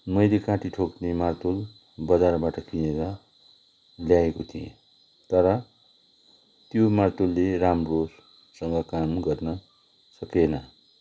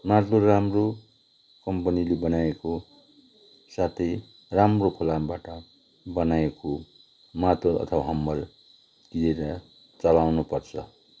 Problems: constant background noise